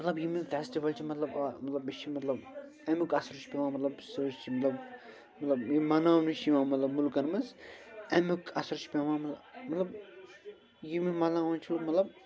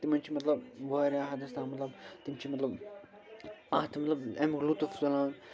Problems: constant background noise, continuous background conversations